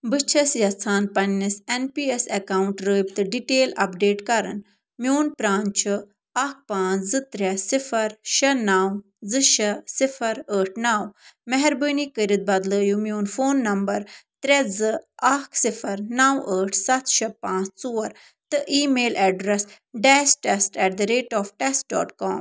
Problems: none marked